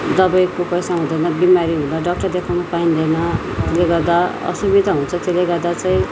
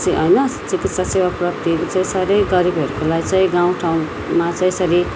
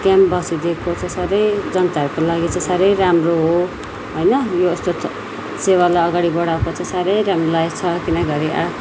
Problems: continuous background conversations